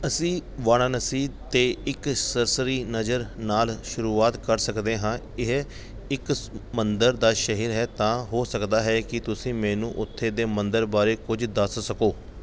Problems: background sounds at intervals